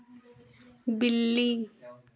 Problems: none marked